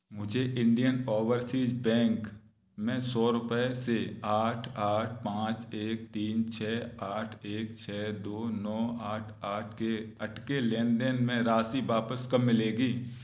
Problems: background sounds at intervals